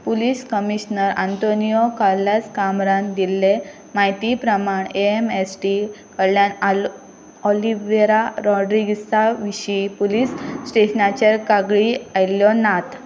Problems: constant background noise